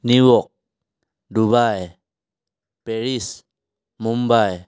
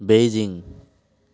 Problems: none marked